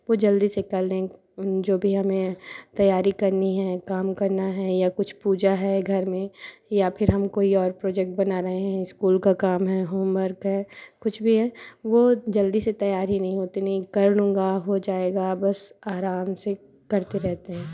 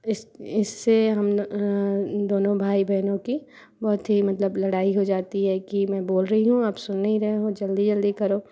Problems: constant background noise